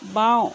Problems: background sounds at intervals